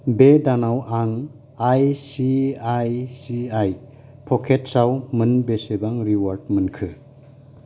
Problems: none marked